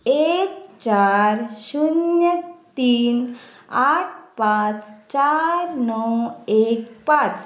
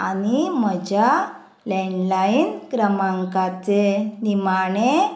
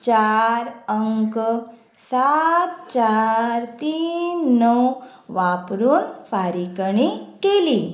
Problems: none marked